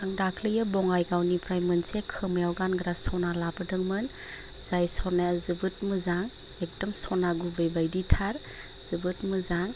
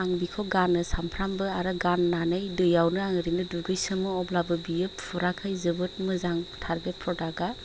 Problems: constant background noise